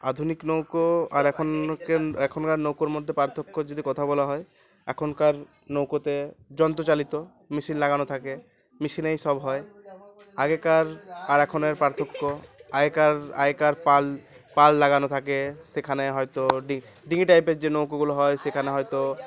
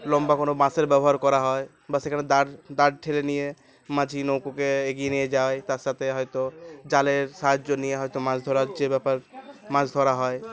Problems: none marked